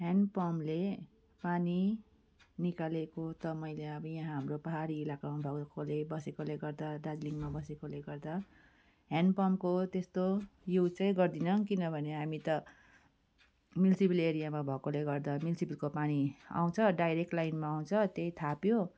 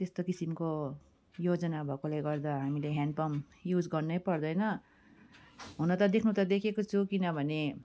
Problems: background sounds at intervals